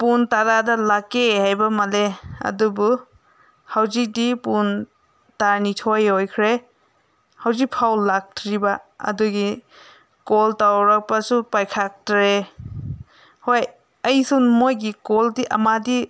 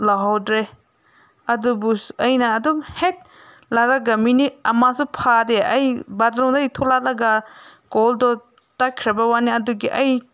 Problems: background sounds at intervals